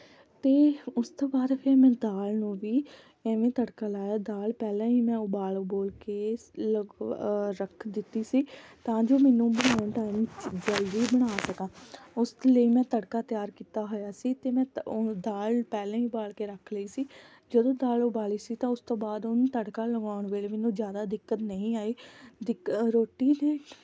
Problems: background sounds at intervals